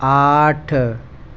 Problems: constant background noise, low volume